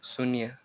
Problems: low volume